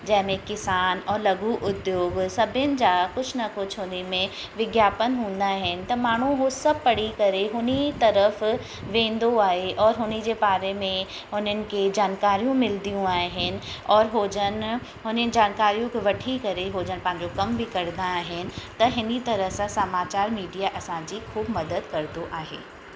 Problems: constant background noise, echo